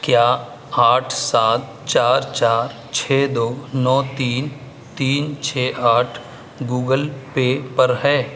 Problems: constant background noise